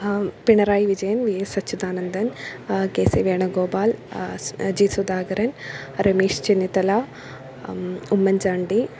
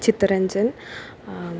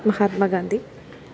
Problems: none marked